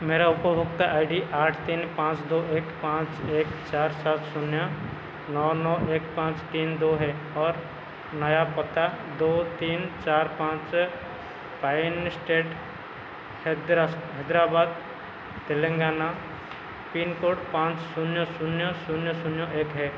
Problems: constant background noise